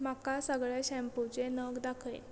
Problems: background sounds at intervals